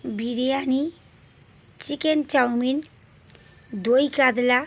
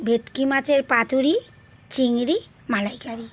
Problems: constant background noise